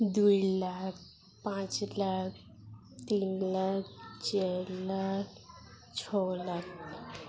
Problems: none marked